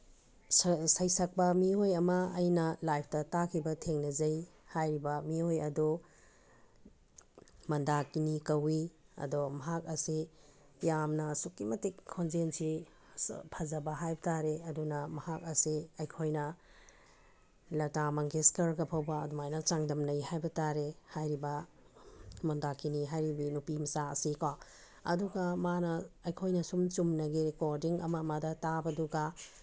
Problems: none marked